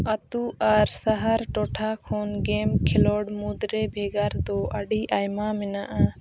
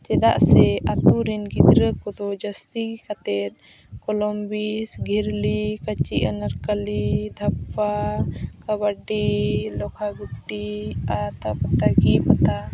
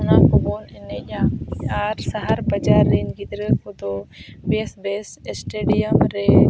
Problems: constant background noise